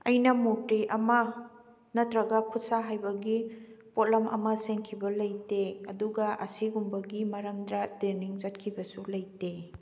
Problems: background sounds at intervals